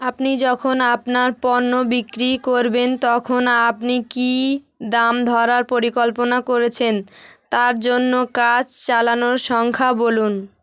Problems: continuous background conversations